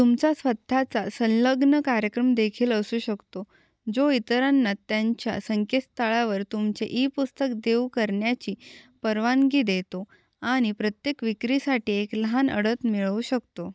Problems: none marked